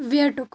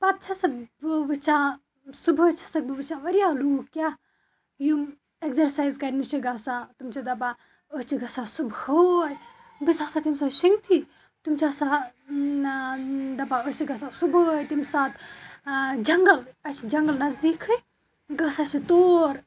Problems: background sounds at intervals